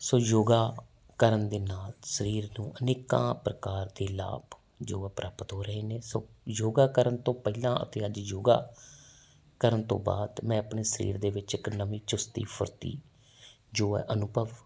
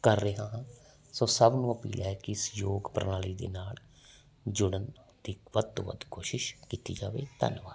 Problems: background sounds at intervals